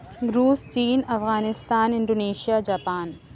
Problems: none marked